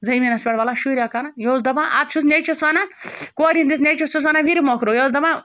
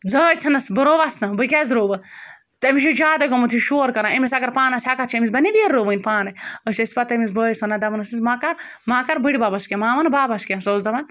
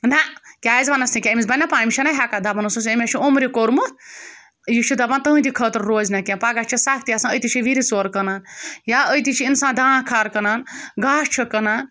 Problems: background sounds at intervals